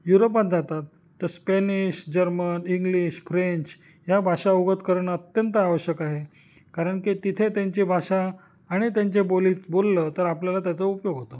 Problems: none marked